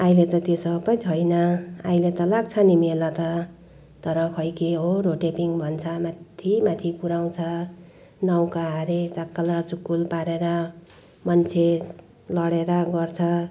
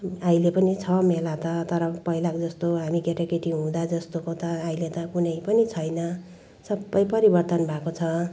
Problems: background sounds at intervals